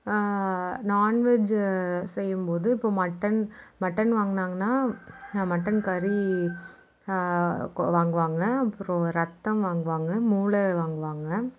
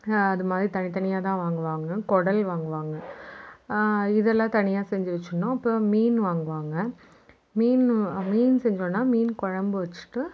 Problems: background sounds at intervals, background conversations at intervals